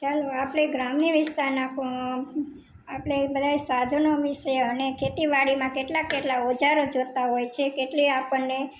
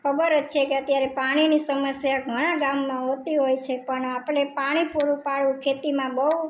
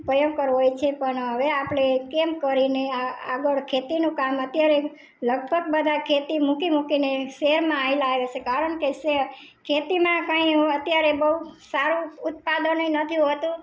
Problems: background conversations at intervals